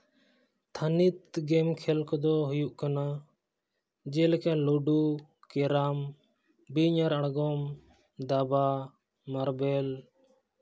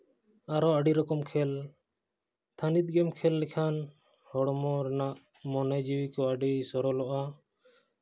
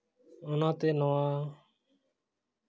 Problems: none marked